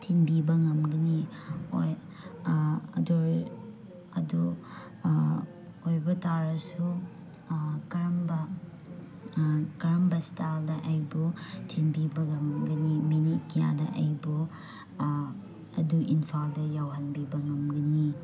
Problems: background sounds at intervals, background conversations at intervals